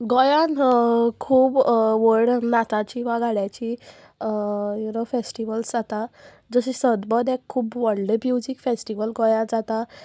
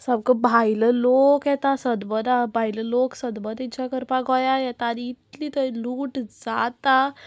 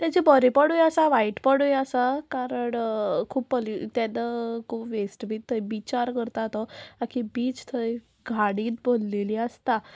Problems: none marked